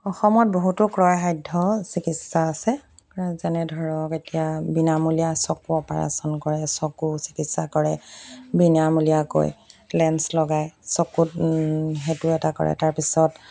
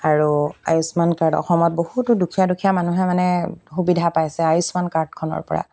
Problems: none marked